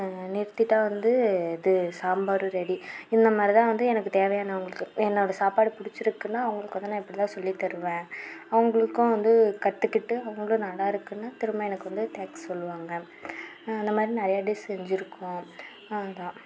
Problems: constant background noise